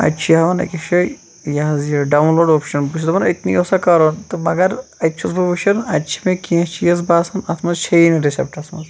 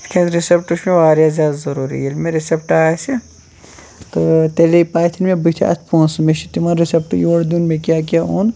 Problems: background conversations at intervals